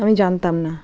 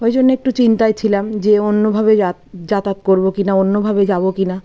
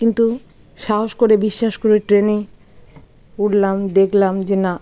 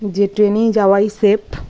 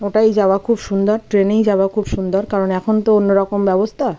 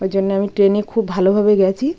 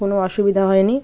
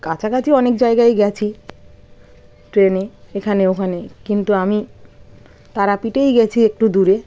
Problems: constant background noise, continuous background conversations